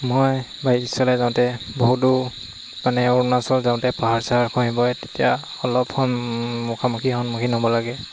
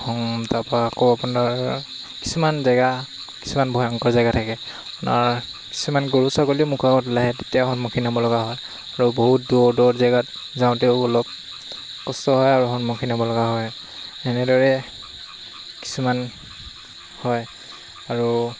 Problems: constant background noise